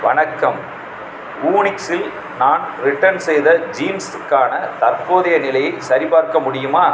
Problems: background sounds at intervals, background conversations at intervals